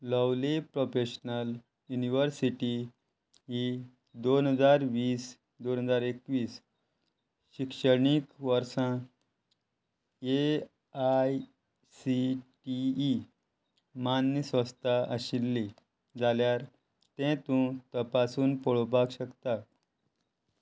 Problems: none marked